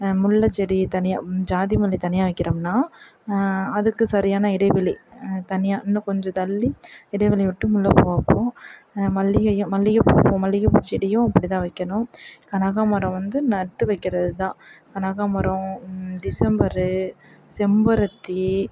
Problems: background sounds at intervals